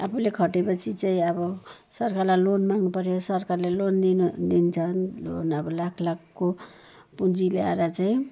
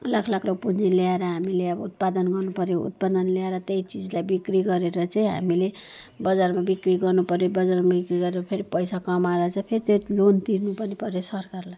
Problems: background sounds at intervals